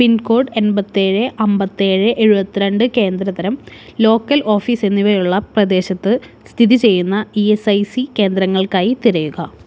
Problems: none marked